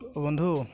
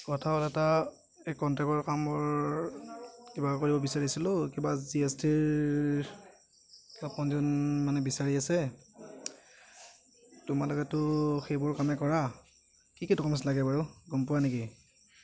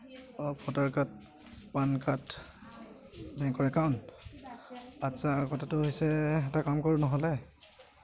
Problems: none marked